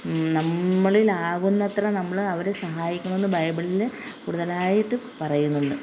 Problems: none marked